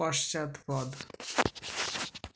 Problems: constant background noise